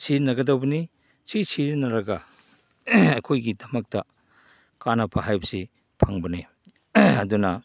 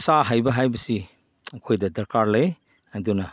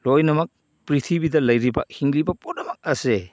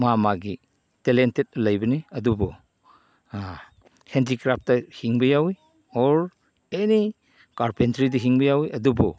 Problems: none marked